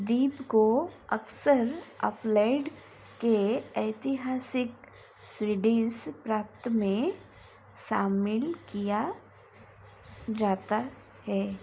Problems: constant background noise